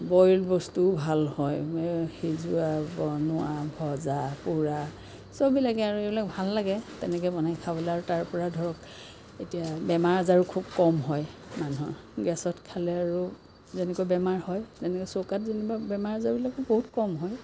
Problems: constant background noise